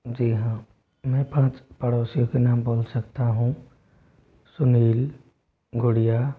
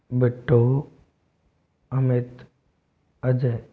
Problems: none marked